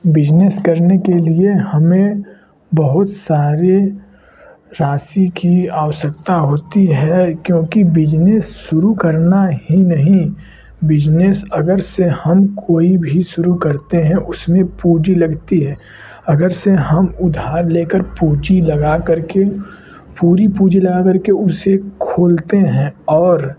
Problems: constant background noise